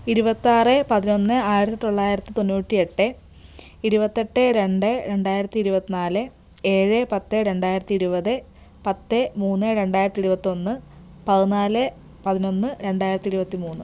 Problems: background sounds at intervals